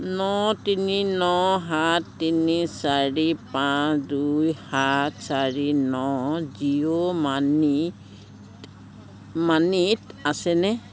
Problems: constant background noise, background conversations at intervals